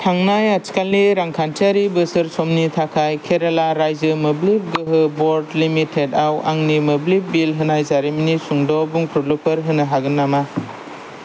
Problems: none marked